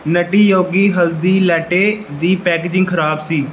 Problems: none marked